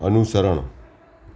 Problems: none marked